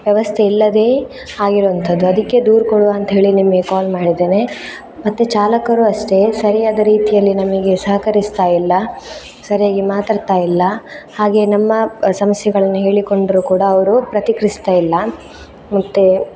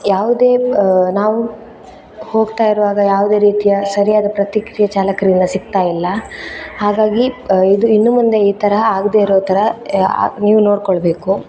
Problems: background sounds at intervals